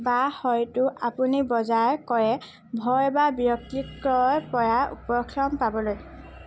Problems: constant background noise